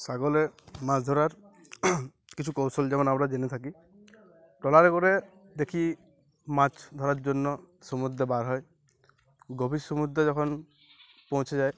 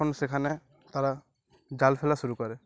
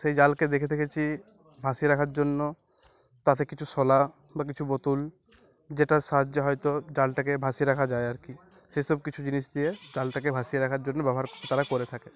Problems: none marked